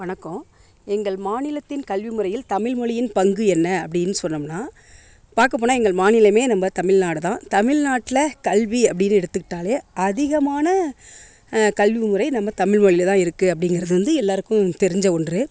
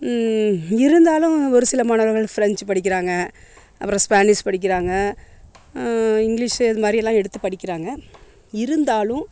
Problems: constant background noise